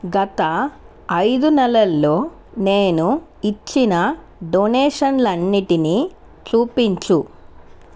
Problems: constant background noise